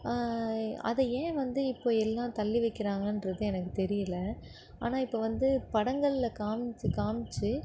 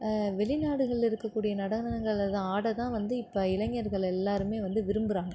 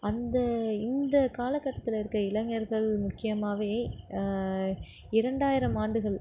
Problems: none marked